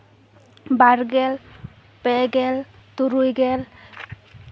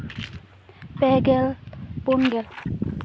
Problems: continuous background conversations